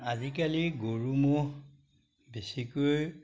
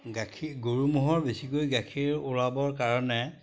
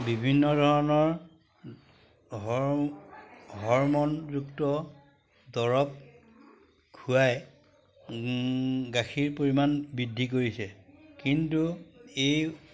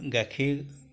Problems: none marked